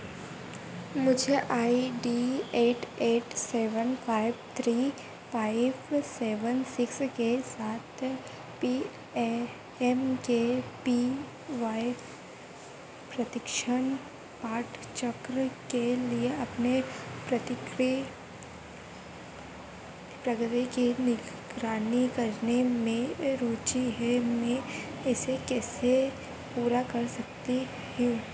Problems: constant background noise